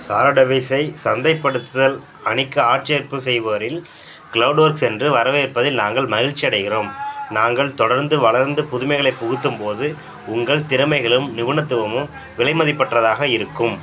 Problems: background sounds at intervals, background conversations at intervals